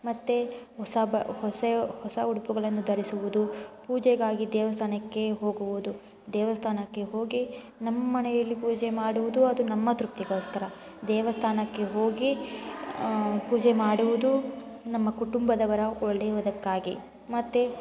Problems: constant background noise